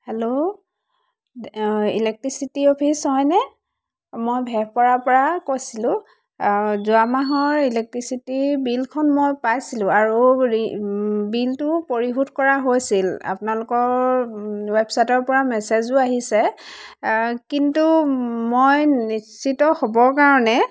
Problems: constant background noise